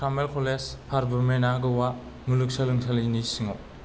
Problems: low volume